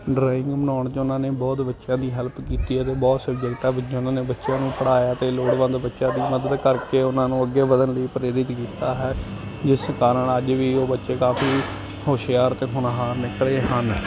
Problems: constant background noise